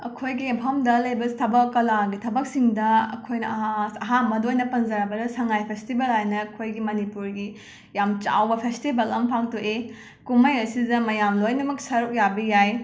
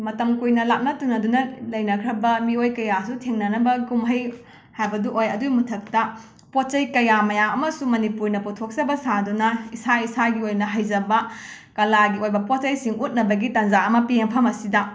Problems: background sounds at intervals